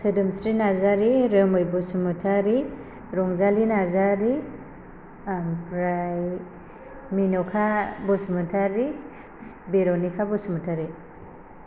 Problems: constant background noise